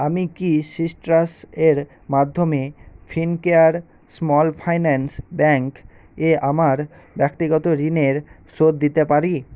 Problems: constant background noise